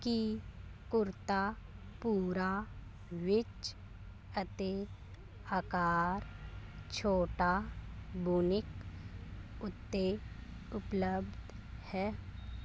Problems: constant background noise